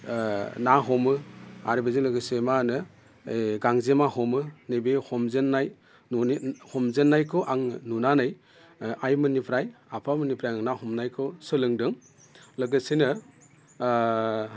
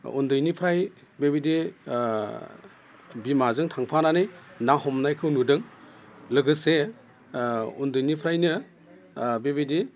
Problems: constant background noise